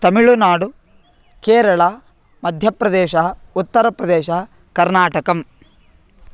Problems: constant background noise